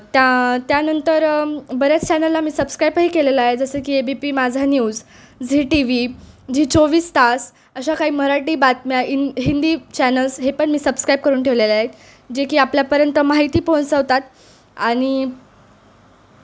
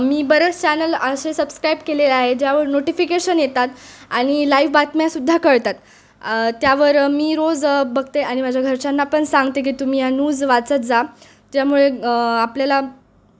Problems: none marked